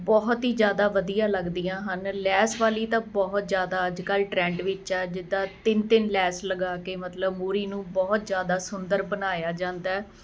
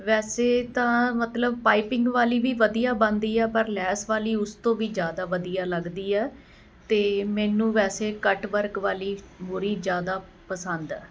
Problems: none marked